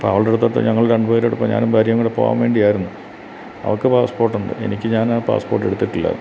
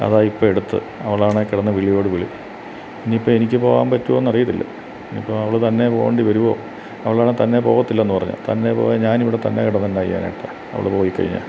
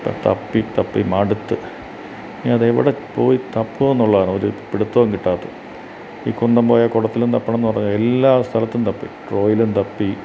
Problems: constant background noise